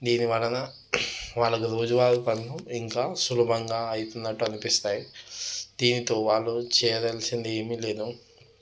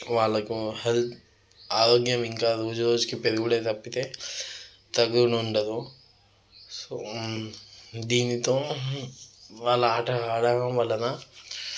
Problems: none marked